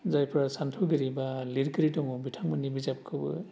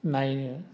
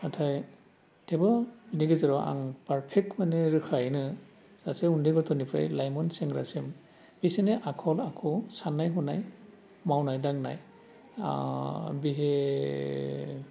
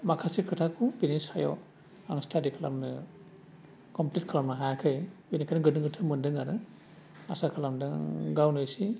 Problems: low volume